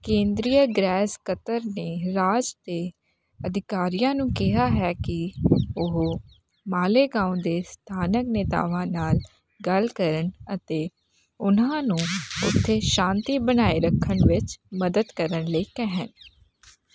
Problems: background sounds at intervals